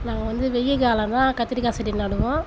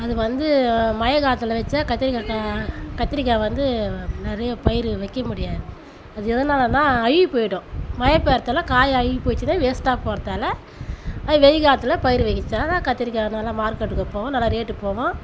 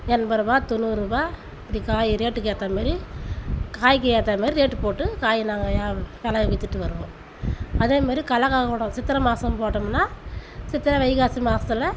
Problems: constant background noise